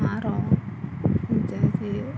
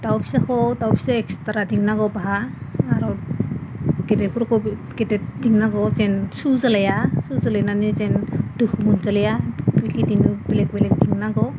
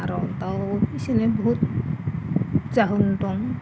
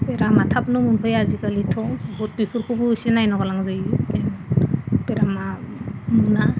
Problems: constant background noise